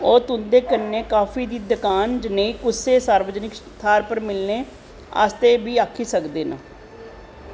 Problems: constant background noise